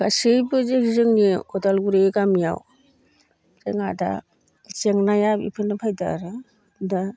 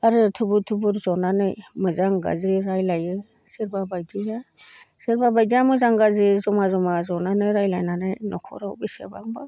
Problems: constant background noise